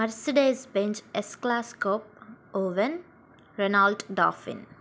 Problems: background sounds at intervals